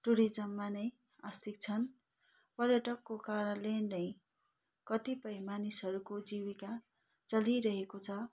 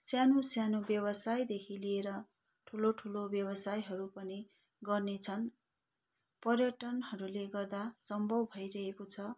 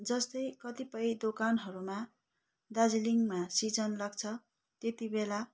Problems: none marked